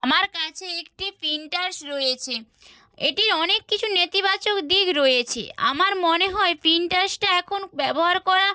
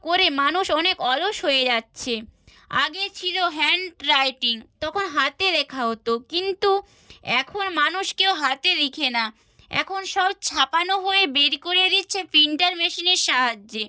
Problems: none marked